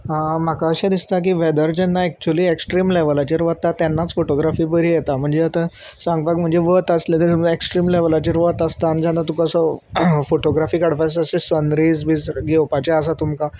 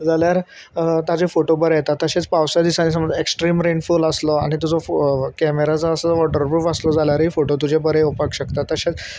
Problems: constant background noise